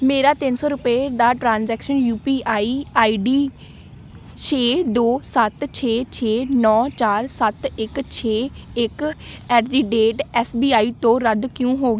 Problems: background sounds at intervals